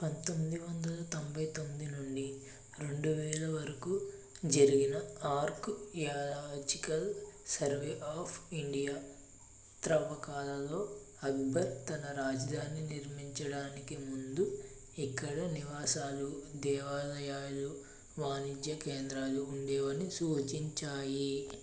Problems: low volume